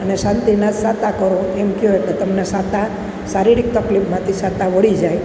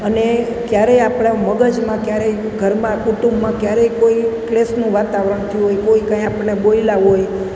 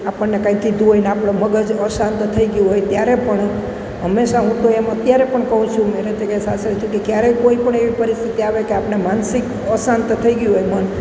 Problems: none marked